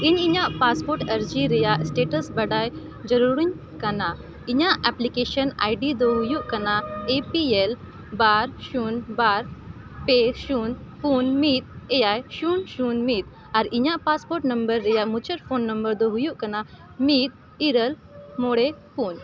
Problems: constant background noise